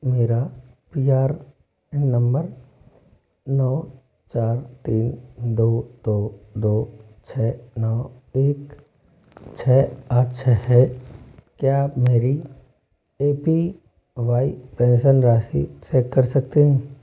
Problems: constant background noise